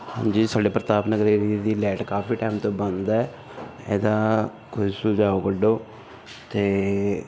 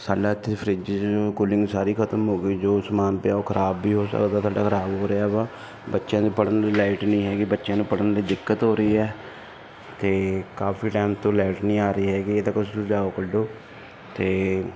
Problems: background sounds at intervals